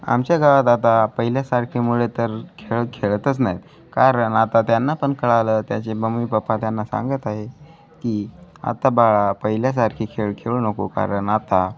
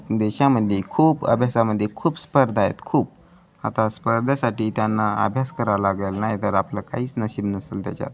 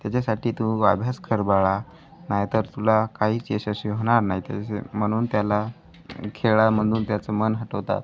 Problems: continuous background conversations